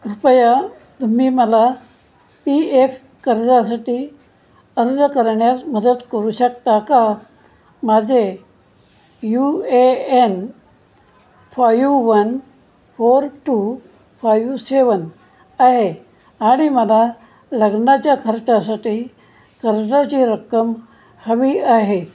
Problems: none marked